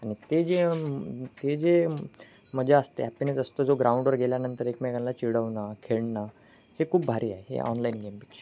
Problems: constant background noise